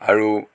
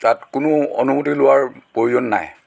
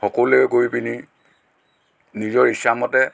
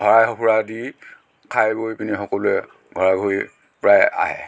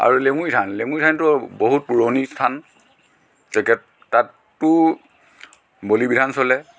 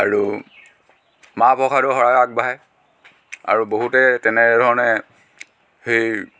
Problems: background sounds at intervals, background conversations at intervals